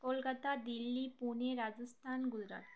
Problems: background sounds at intervals